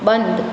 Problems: constant background noise